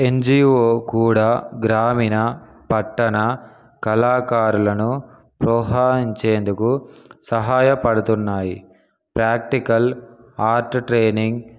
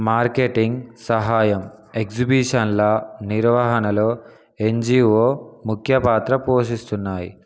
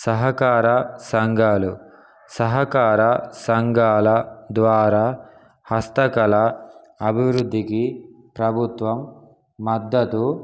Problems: background sounds at intervals